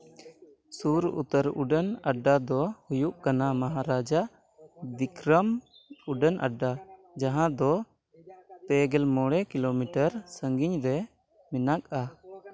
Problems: background conversations at intervals